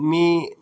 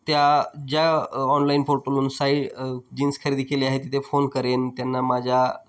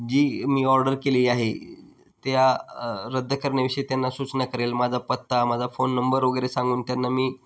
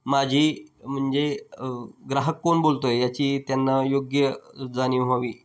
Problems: background sounds at intervals